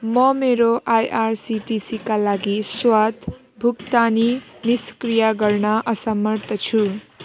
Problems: constant background noise